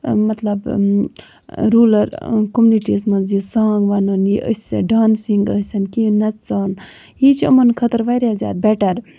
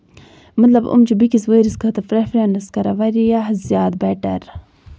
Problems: constant background noise